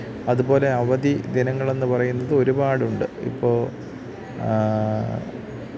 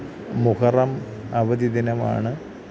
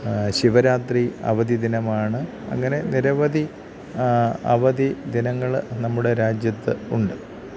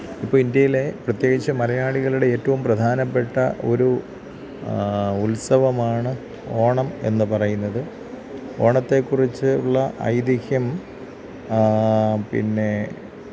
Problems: background sounds at intervals, low volume